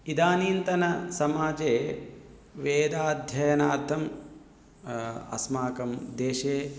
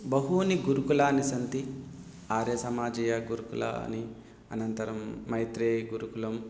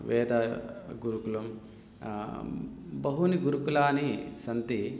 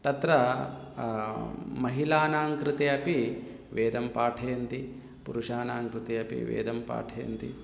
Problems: background conversations at intervals